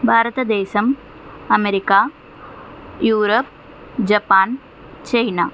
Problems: constant background noise